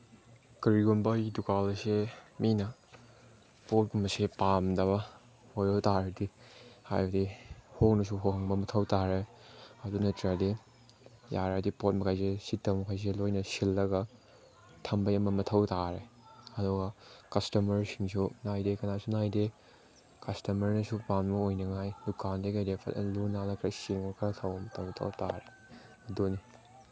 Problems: background sounds at intervals, background conversations at intervals